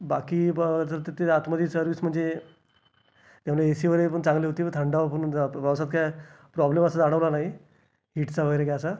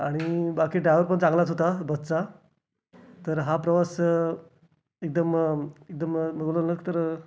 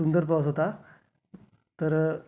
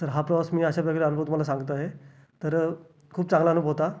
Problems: constant background noise, background conversations at intervals